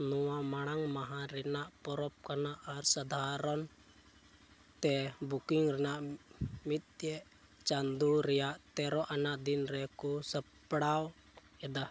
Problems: low volume